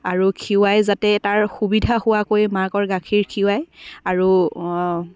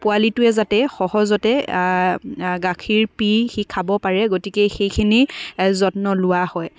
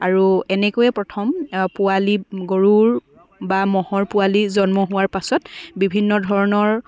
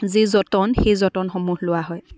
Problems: background sounds at intervals, continuous background conversations